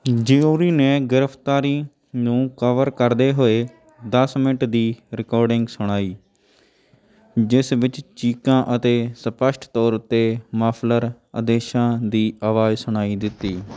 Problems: background sounds at intervals, background conversations at intervals